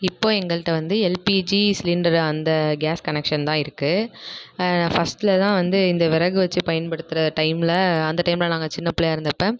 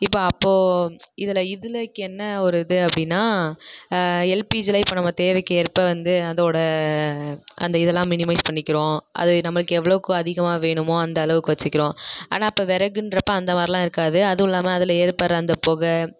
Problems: none marked